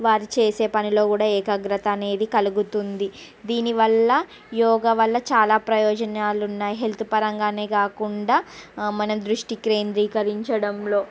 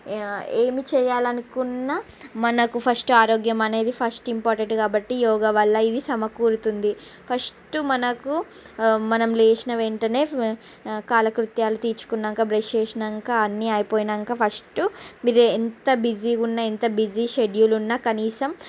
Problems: none marked